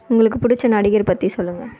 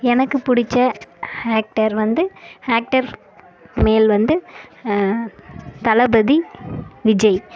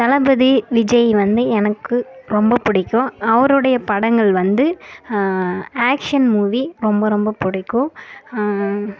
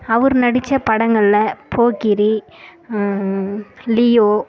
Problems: background sounds at intervals